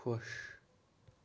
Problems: none marked